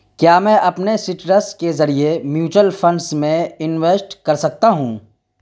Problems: constant background noise